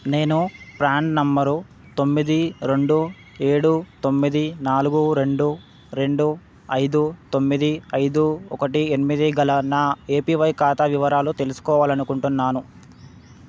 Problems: none marked